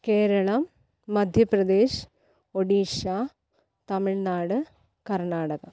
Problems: low volume